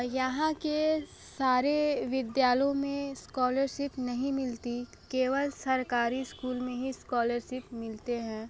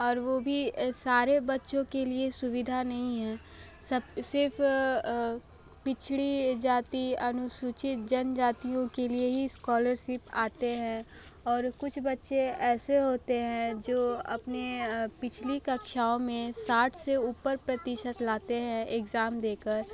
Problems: constant background noise